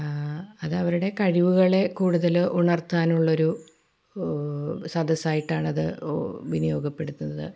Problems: low volume